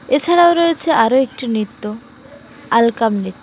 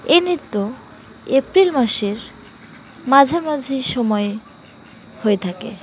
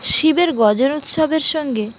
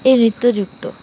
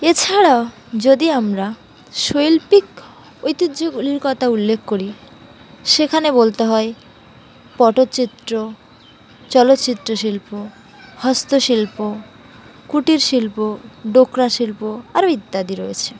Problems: constant background noise, continuous background conversations